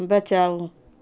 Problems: none marked